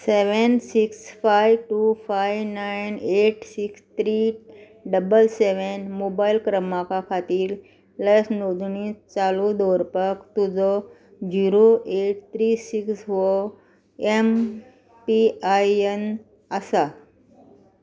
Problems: none marked